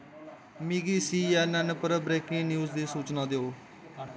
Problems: constant background noise